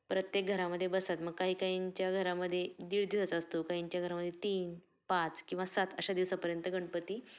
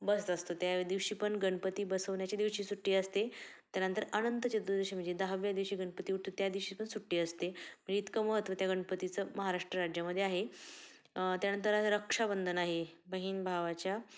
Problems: constant background noise, background conversations at intervals